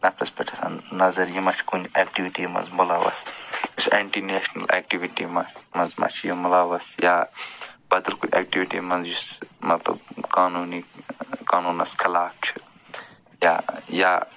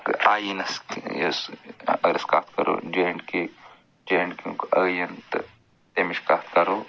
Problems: constant background noise